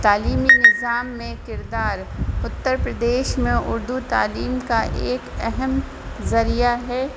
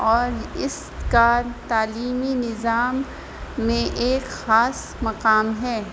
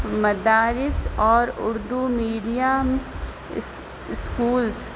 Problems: constant background noise